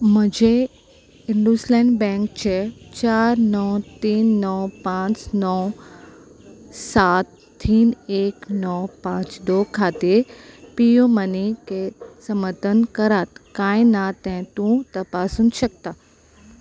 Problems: constant background noise